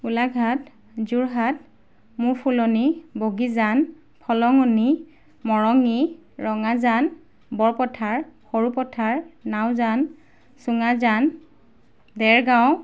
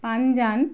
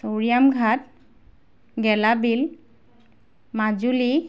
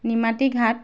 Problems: background sounds at intervals